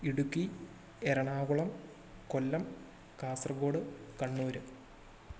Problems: low volume